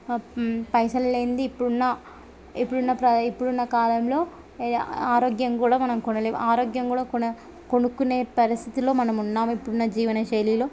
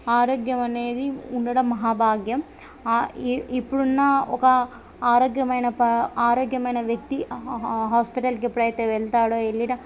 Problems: background sounds at intervals, background conversations at intervals